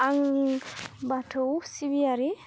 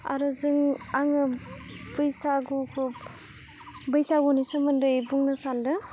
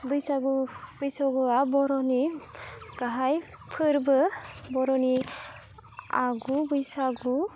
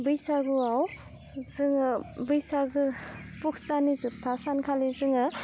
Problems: low volume